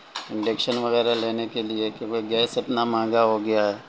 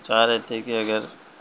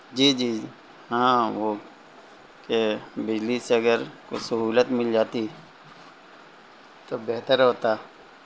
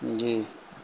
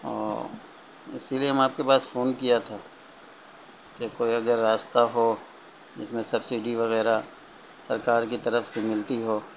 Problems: constant background noise, low volume